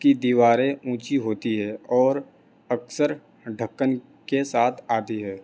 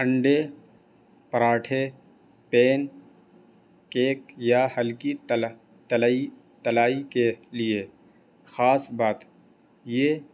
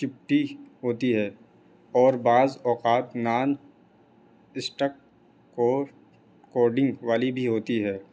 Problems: constant background noise